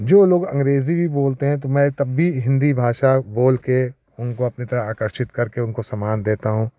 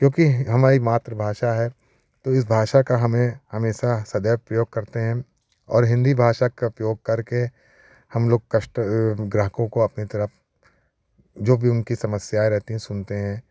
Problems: none marked